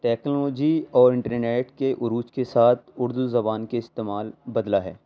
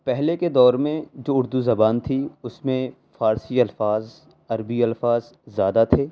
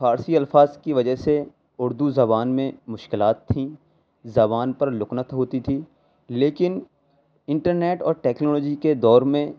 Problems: background sounds at intervals